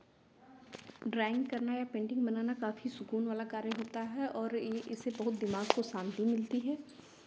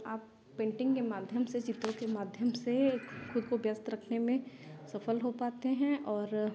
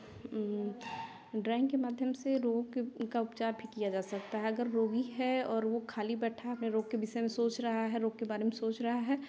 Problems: none marked